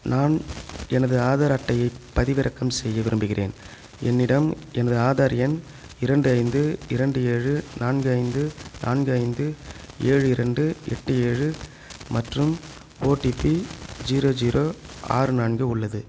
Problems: background sounds at intervals